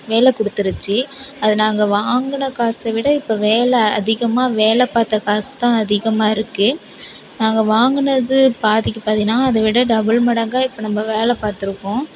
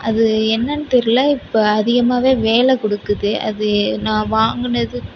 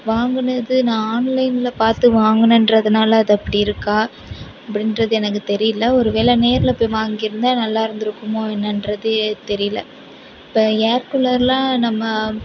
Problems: continuous background conversations